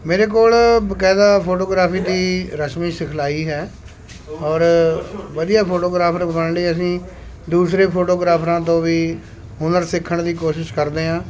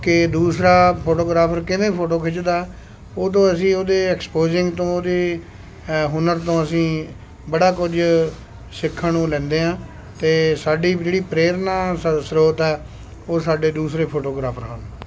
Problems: constant background noise